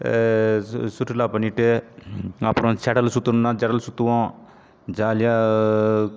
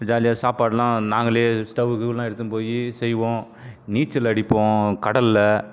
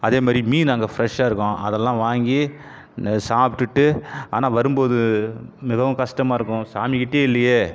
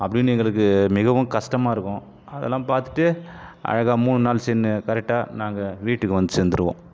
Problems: background sounds at intervals